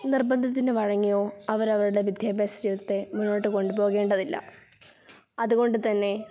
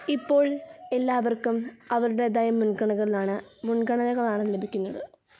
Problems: background conversations at intervals